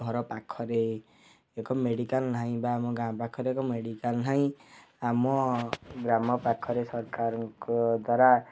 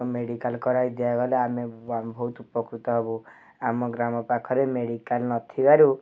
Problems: none marked